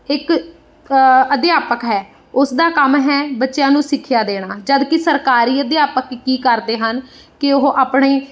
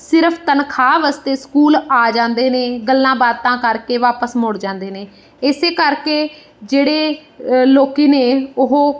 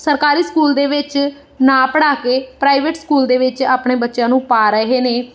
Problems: background sounds at intervals